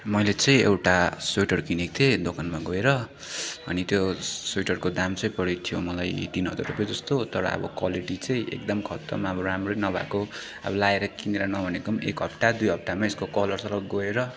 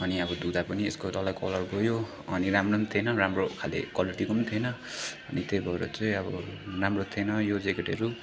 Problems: constant background noise, continuous background conversations